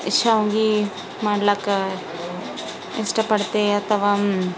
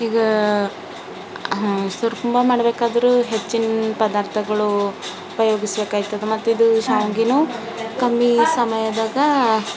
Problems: none marked